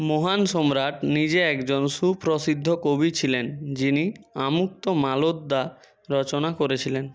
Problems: background sounds at intervals